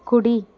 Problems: constant background noise